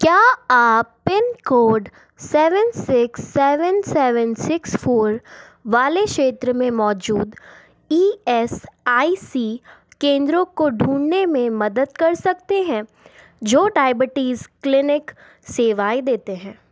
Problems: background sounds at intervals